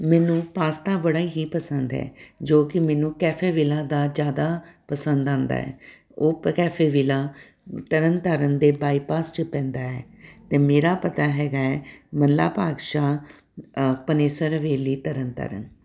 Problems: none marked